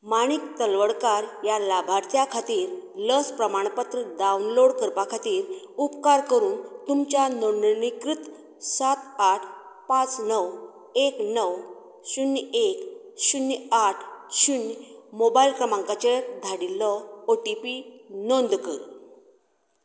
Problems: none marked